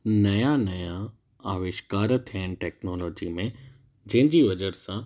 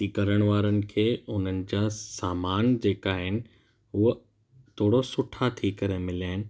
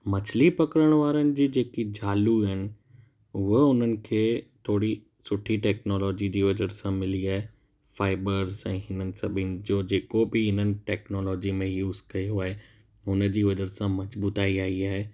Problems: none marked